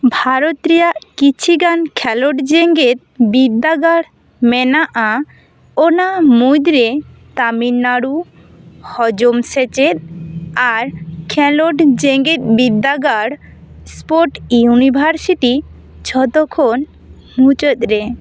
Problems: none marked